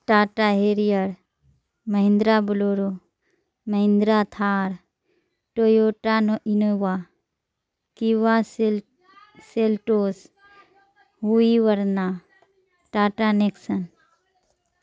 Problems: background sounds at intervals, low volume